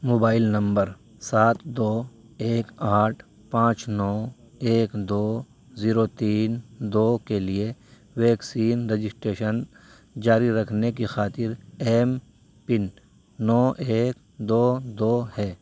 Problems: none marked